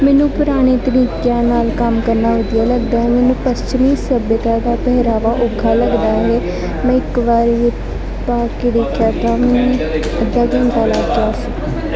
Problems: constant background noise, continuous background conversations